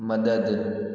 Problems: background sounds at intervals, echo